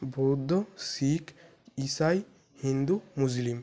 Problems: background sounds at intervals